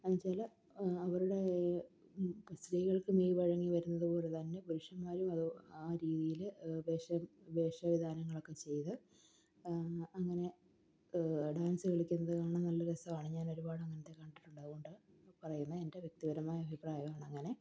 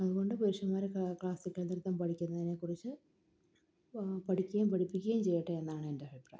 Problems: low volume